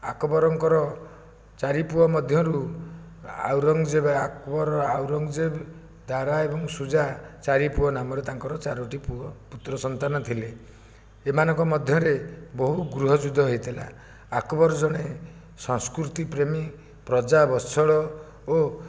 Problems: none marked